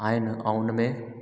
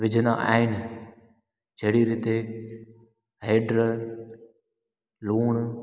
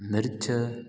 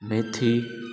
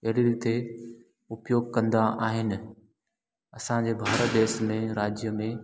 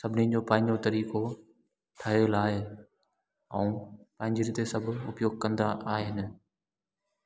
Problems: background sounds at intervals, echo